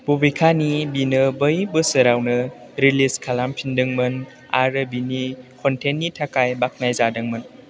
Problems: constant background noise